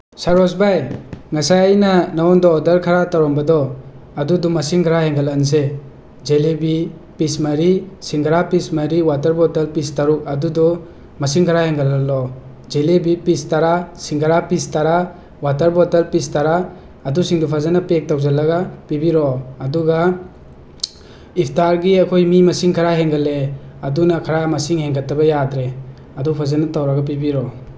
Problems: none marked